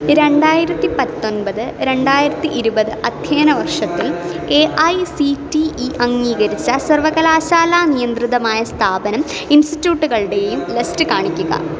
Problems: background conversations at intervals